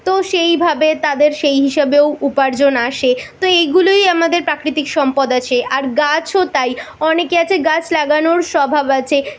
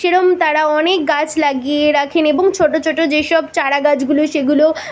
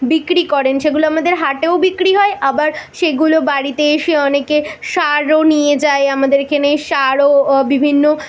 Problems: constant background noise